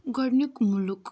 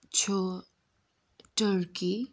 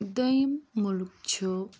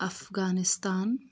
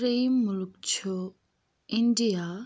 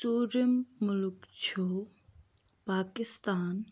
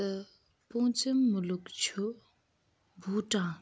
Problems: none marked